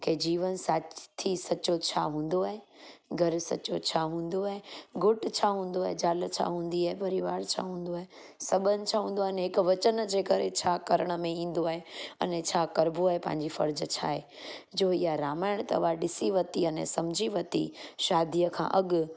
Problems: constant background noise